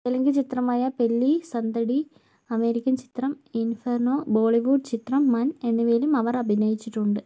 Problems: low volume